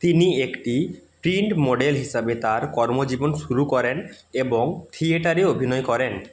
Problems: none marked